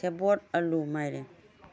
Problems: low volume